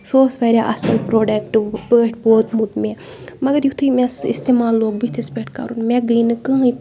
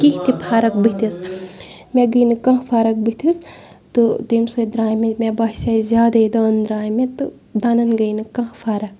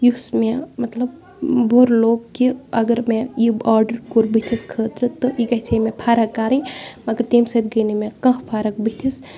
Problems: background sounds at intervals, background conversations at intervals